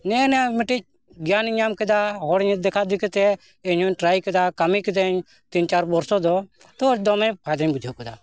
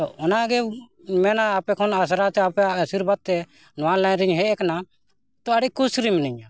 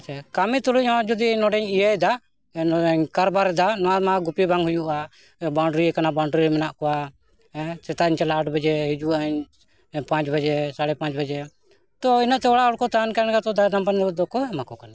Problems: continuous background conversations